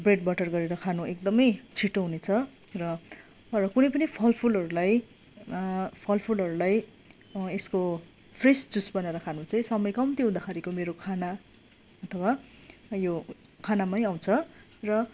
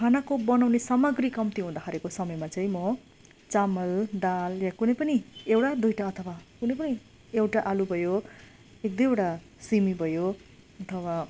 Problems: constant background noise